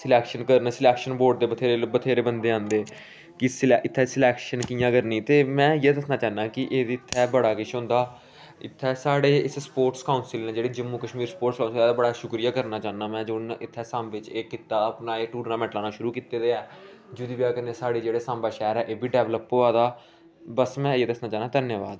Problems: none marked